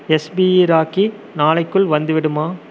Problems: constant background noise